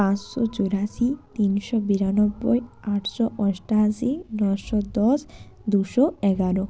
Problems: constant background noise, background conversations at intervals